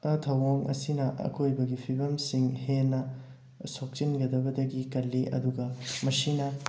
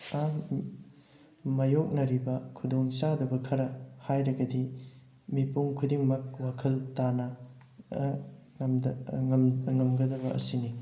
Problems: background sounds at intervals